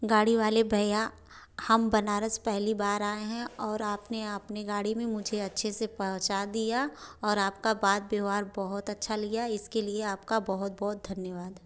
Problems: none marked